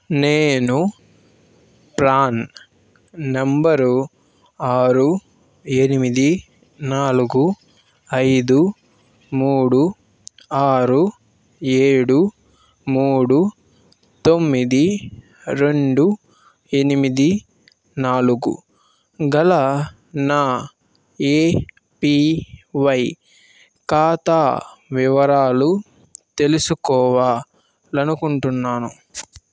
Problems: constant background noise